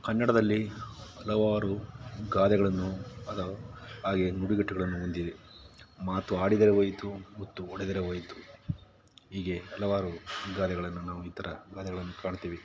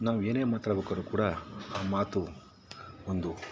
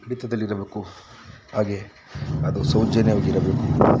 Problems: background sounds at intervals